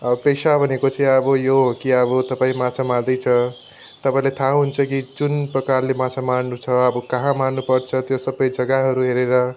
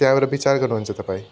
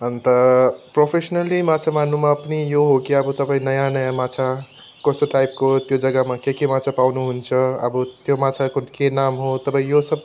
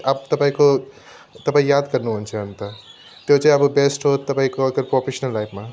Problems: background sounds at intervals